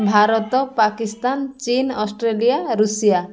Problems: none marked